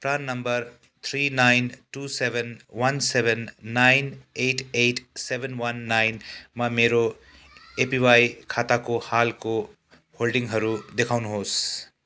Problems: background sounds at intervals, background conversations at intervals